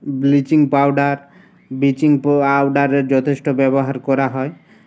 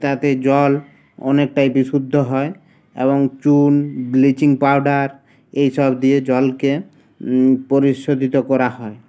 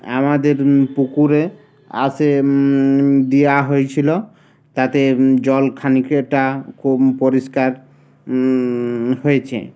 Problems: constant background noise